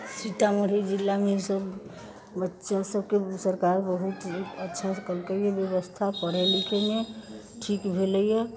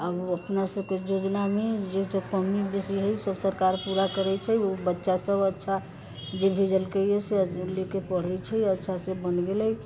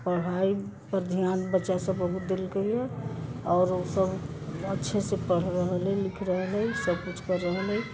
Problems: constant background noise